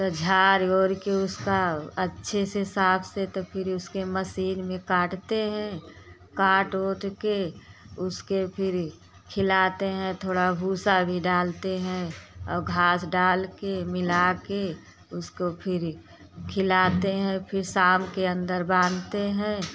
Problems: constant background noise